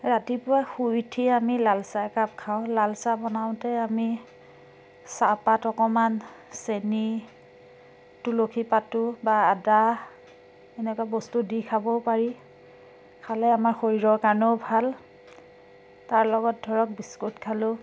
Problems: constant background noise